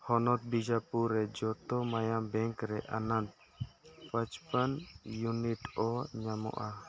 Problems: background sounds at intervals, background conversations at intervals